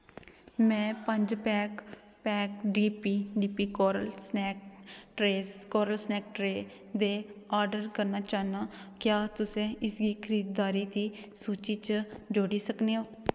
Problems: echo